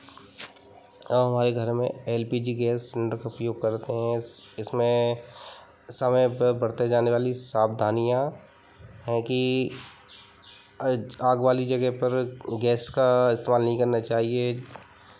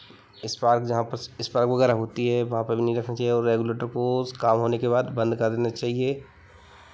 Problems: constant background noise